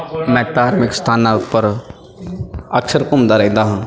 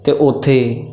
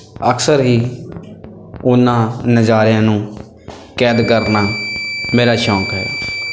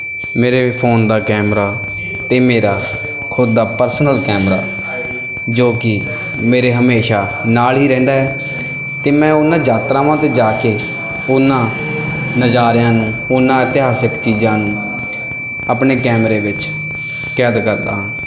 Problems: constant background noise, background conversations at intervals